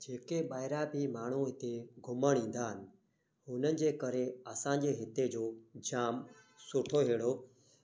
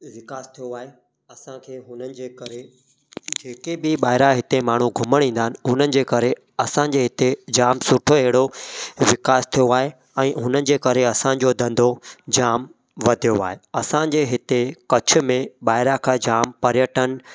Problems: echo